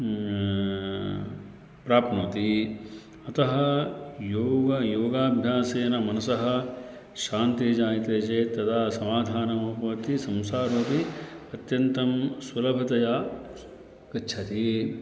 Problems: none marked